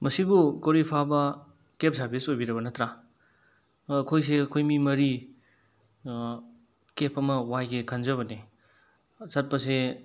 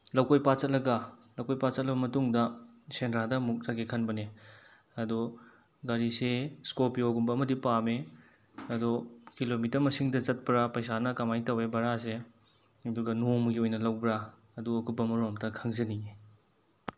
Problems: none marked